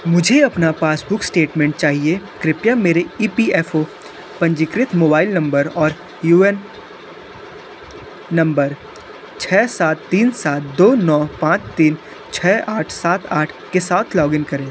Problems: constant background noise